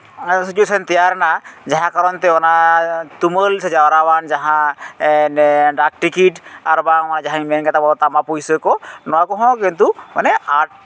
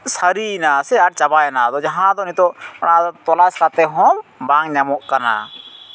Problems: echo